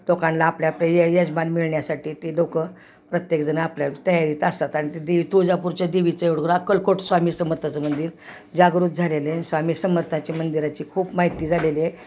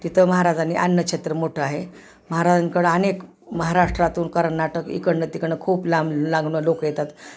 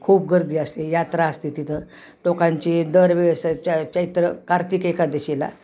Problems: constant background noise, background conversations at intervals